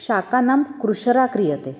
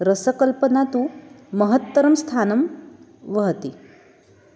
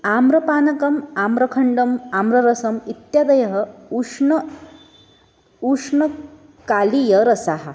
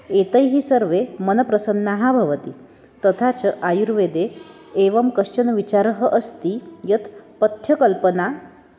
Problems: none marked